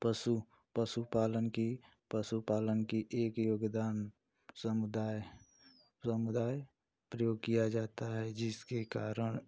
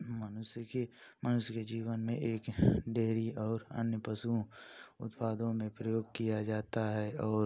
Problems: constant background noise